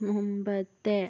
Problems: background sounds at intervals, low volume